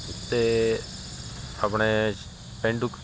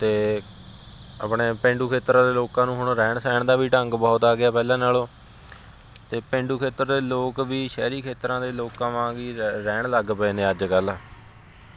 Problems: constant background noise, background conversations at intervals